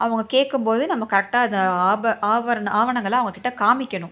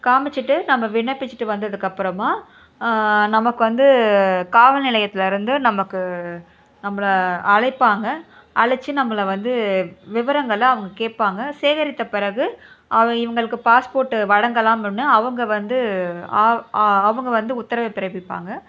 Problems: background sounds at intervals